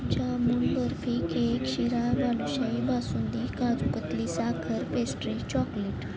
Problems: none marked